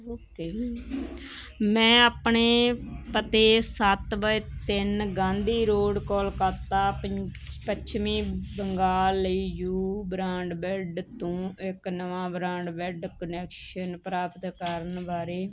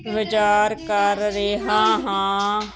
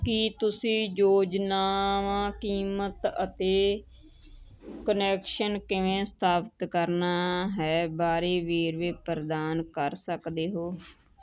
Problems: constant background noise, continuous background conversations